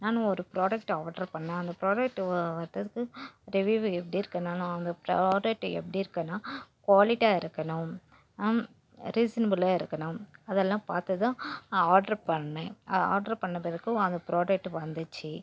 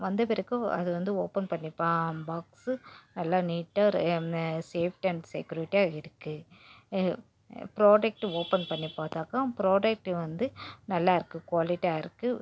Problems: background sounds at intervals